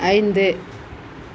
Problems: none marked